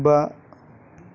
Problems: constant background noise